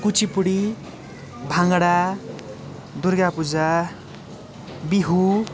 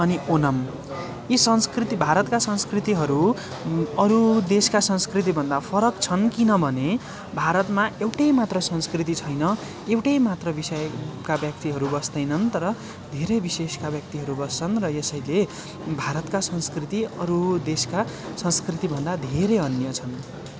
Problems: constant background noise, continuous background conversations